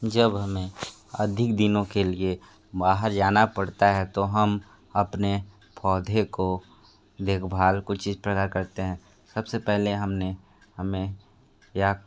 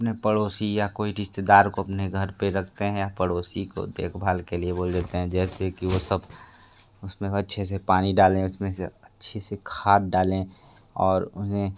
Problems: none marked